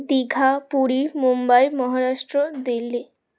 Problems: background sounds at intervals